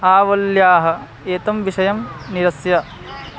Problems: background sounds at intervals